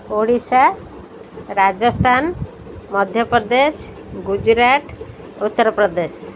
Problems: none marked